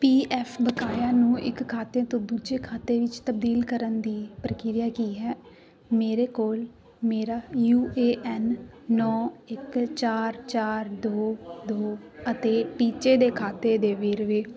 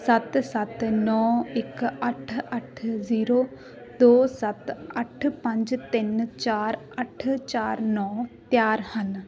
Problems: continuous background conversations